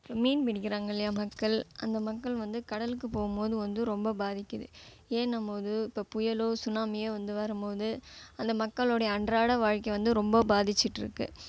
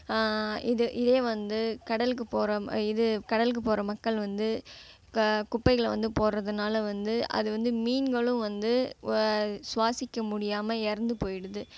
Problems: background sounds at intervals